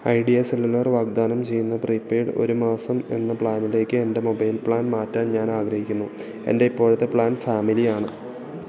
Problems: continuous background conversations